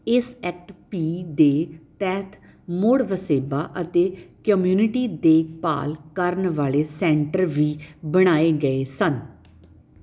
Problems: background sounds at intervals